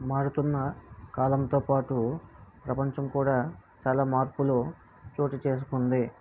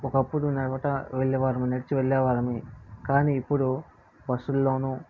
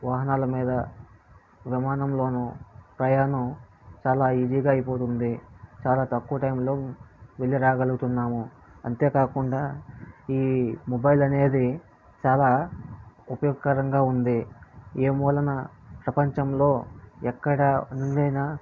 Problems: low volume